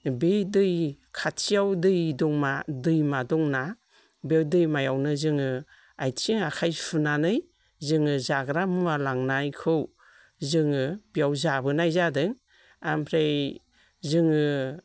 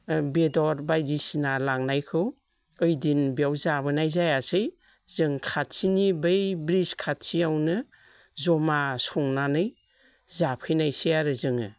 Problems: none marked